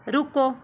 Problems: background sounds at intervals